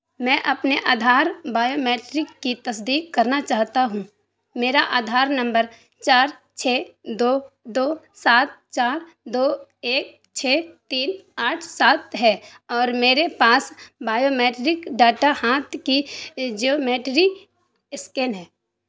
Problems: constant background noise